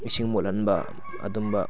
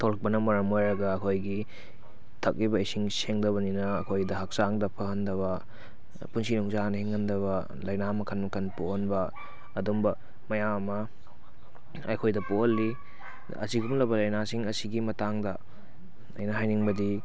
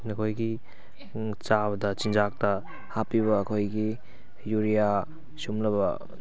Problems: background sounds at intervals